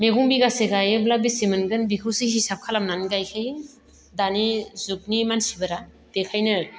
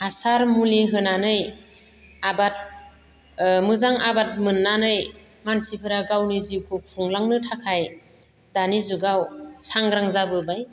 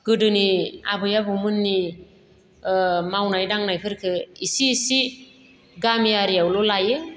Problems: none marked